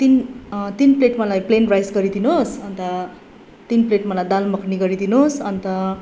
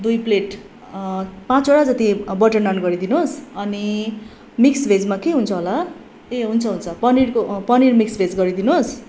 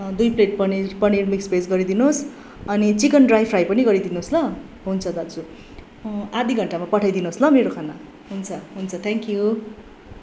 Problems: constant background noise